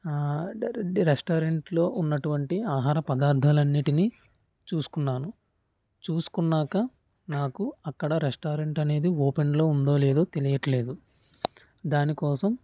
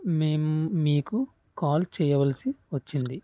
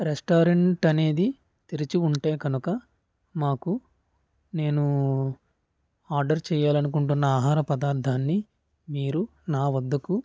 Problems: none marked